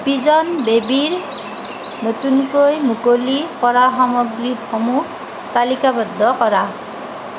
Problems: constant background noise